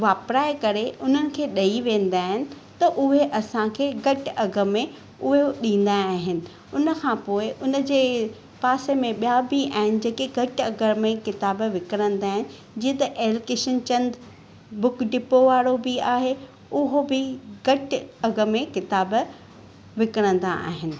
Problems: none marked